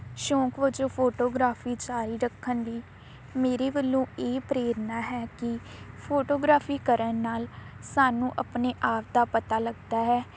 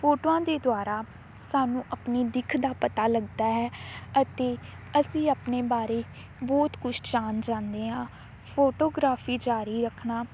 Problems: constant background noise